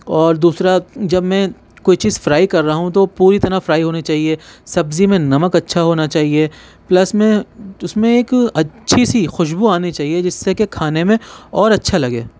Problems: none marked